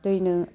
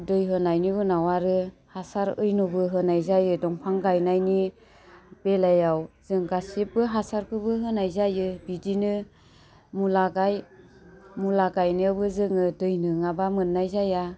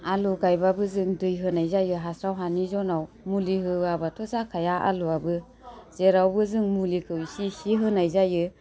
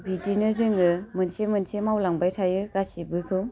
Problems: low volume